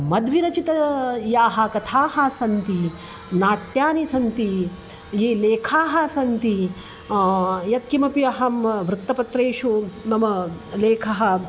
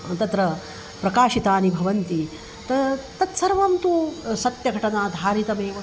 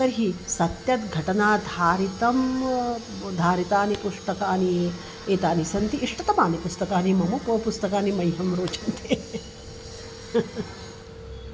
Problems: constant background noise